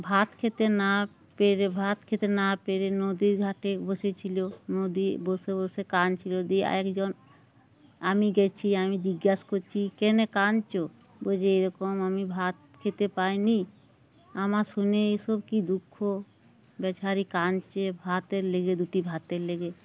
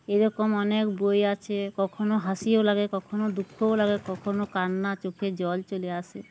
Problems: none marked